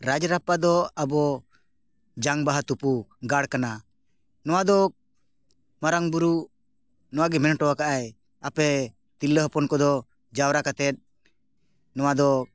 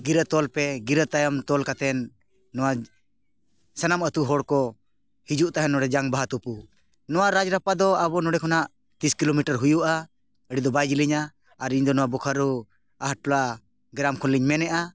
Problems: background conversations at intervals